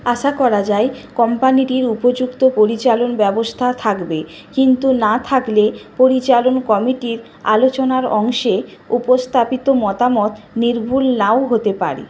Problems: constant background noise